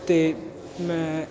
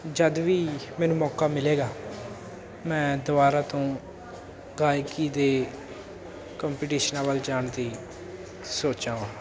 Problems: constant background noise